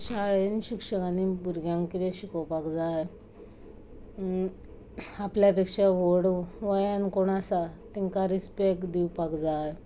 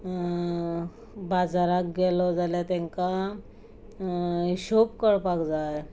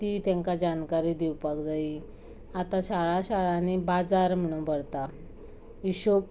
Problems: constant background noise